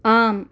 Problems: none marked